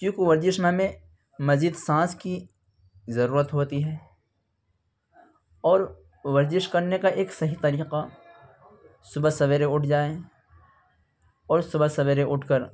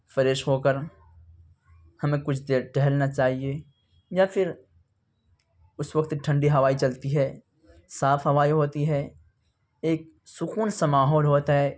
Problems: continuous background conversations